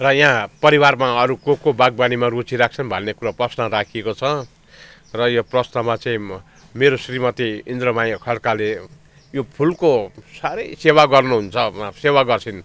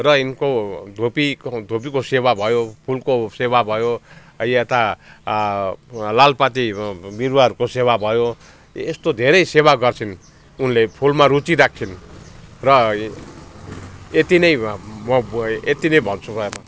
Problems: background sounds at intervals